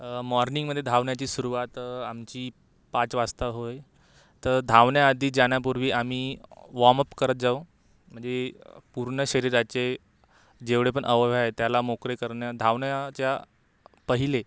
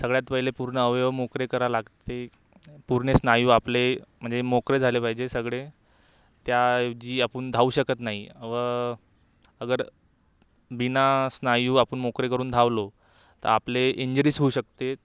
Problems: background sounds at intervals